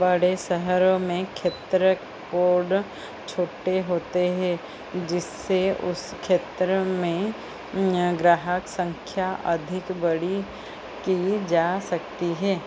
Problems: constant background noise